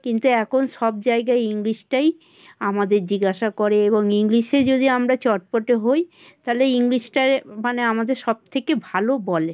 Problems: constant background noise, background conversations at intervals